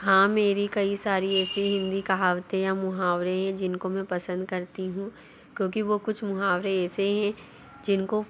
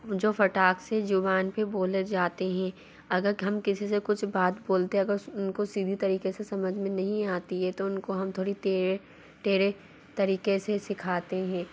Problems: constant background noise